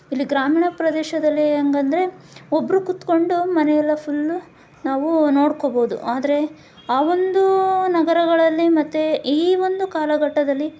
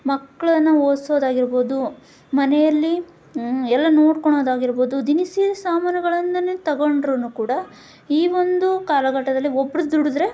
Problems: none marked